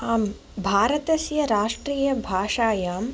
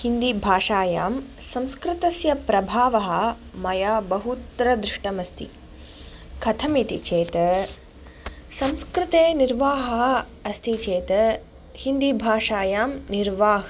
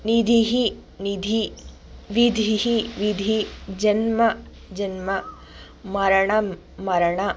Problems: background sounds at intervals